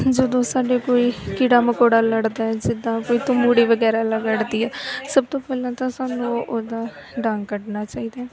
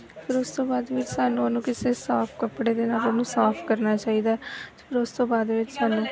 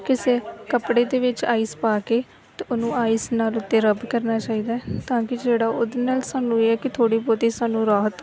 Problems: background sounds at intervals